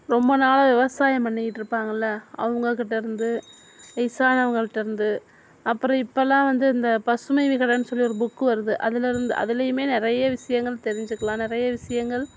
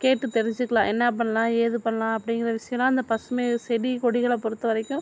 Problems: background sounds at intervals